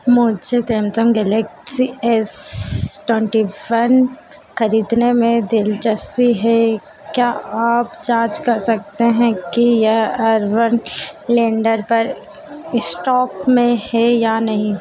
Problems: constant background noise, echo